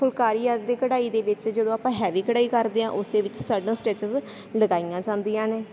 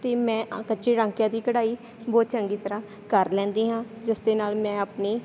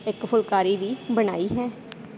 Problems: none marked